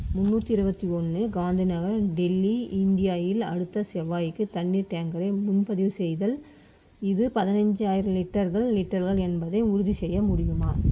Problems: constant background noise